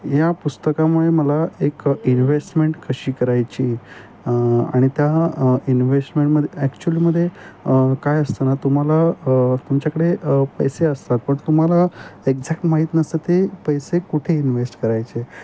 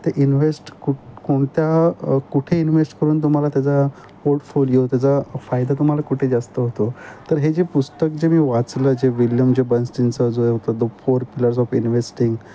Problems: constant background noise